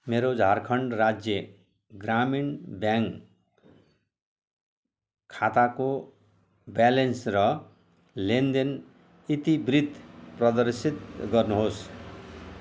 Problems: constant background noise